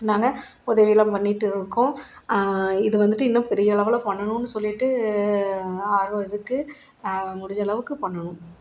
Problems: none marked